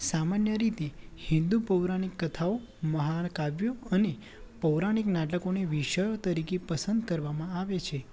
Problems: none marked